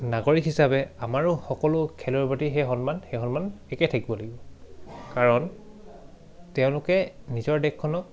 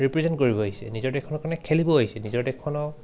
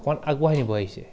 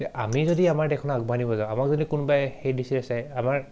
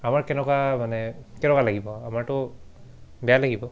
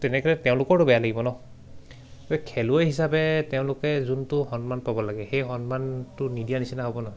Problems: none marked